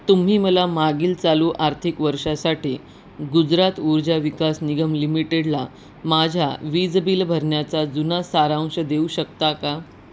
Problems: constant background noise